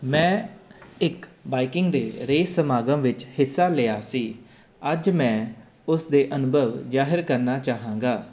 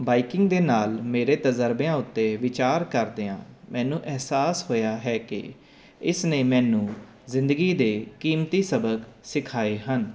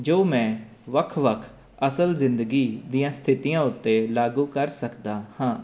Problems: none marked